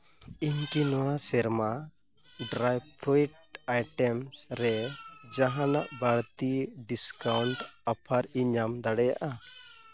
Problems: background sounds at intervals